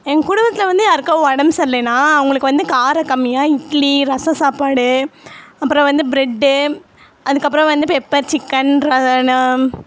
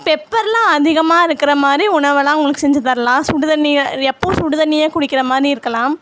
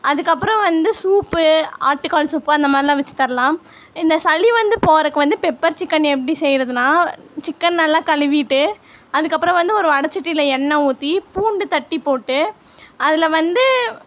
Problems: constant background noise